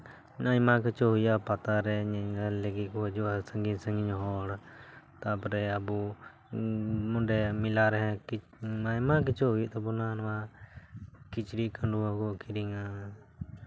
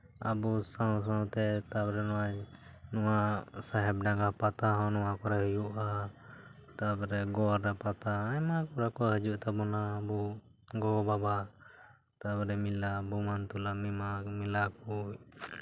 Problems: background sounds at intervals, background conversations at intervals